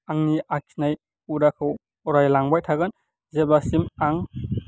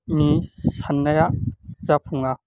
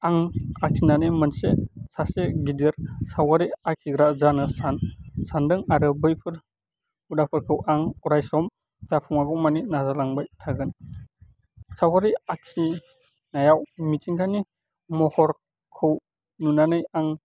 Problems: none marked